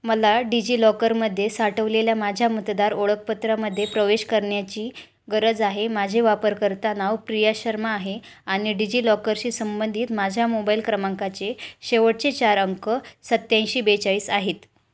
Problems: low volume